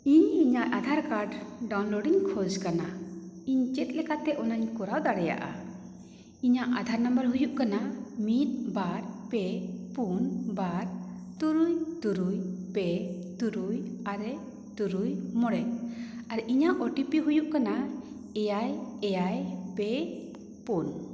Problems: echo